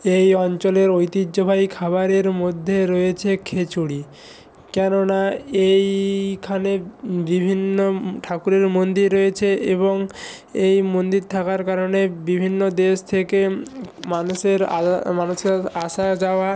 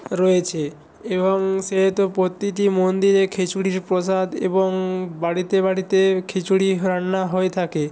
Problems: none marked